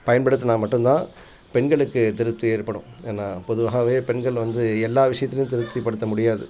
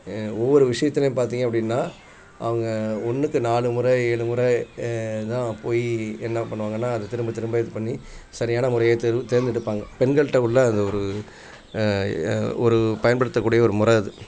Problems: constant background noise, continuous background conversations